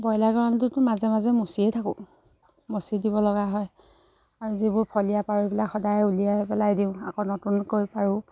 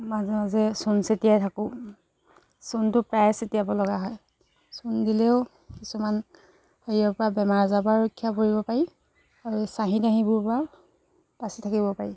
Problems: background sounds at intervals, background conversations at intervals